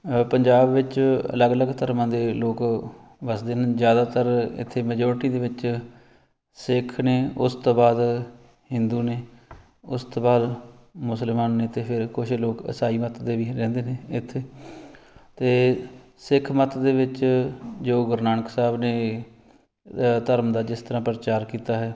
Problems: background sounds at intervals